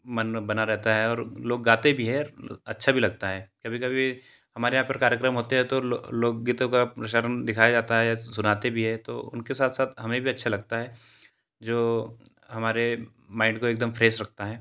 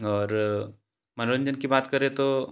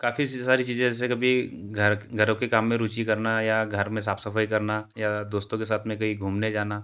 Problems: constant background noise